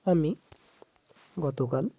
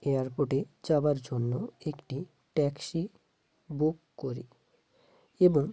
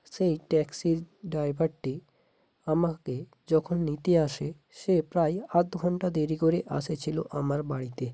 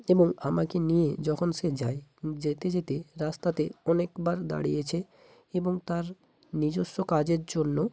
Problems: constant background noise, background conversations at intervals